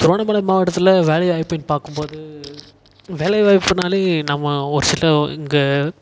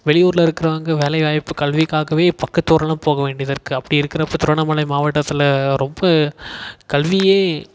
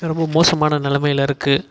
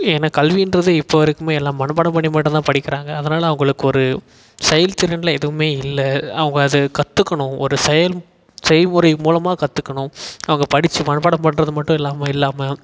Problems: echo